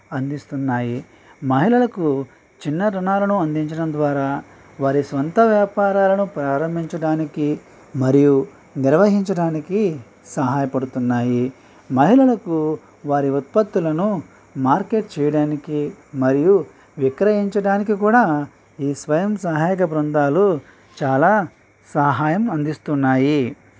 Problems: none marked